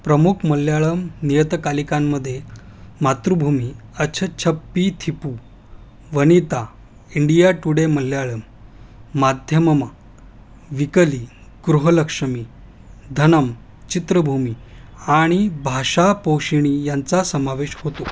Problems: none marked